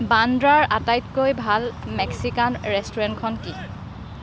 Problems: background sounds at intervals, background conversations at intervals